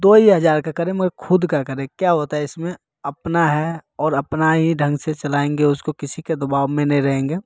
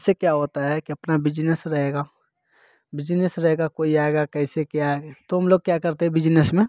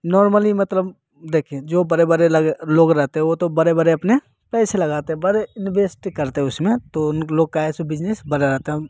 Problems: none marked